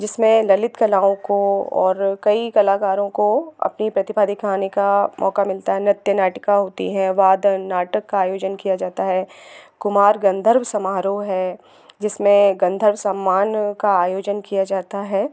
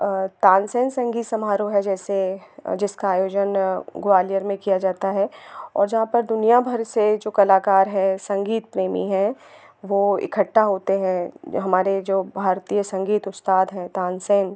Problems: constant background noise